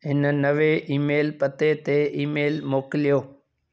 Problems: none marked